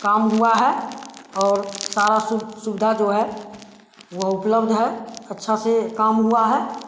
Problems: constant background noise